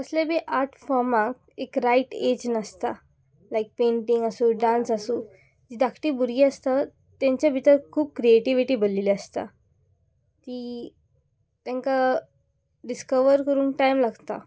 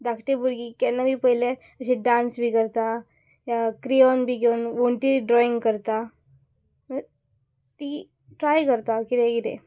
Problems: background sounds at intervals